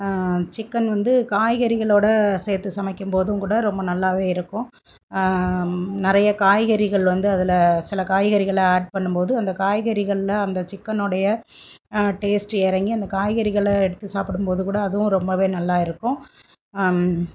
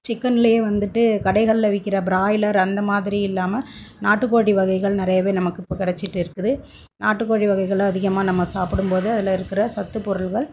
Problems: none marked